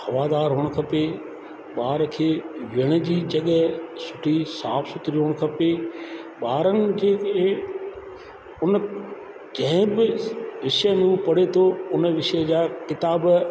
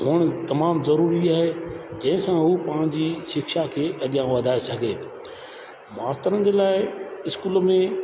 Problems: constant background noise, echo